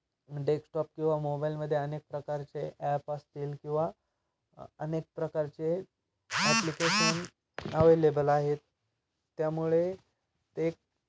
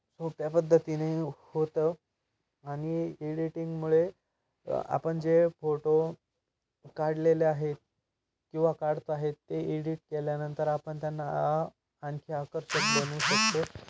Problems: constant background noise